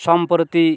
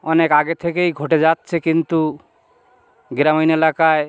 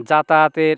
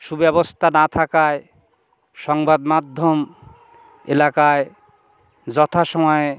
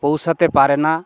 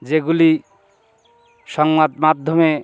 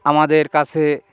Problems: background sounds at intervals